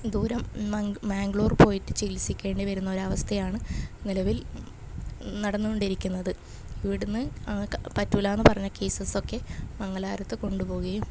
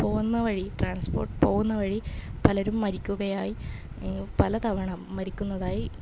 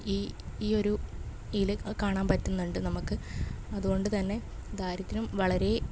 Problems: none marked